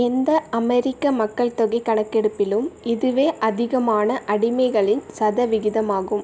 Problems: none marked